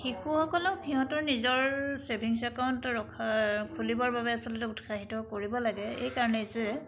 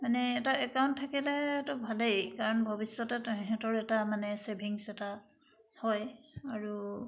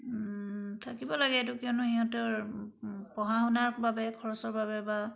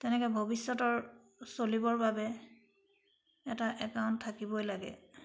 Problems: background sounds at intervals